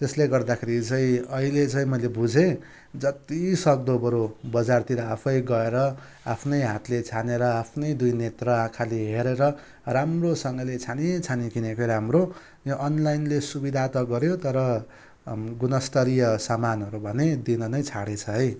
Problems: none marked